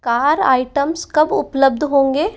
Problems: none marked